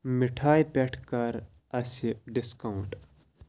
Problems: constant background noise